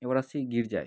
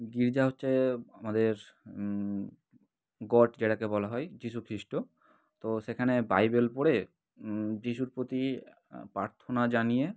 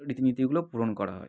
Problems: background sounds at intervals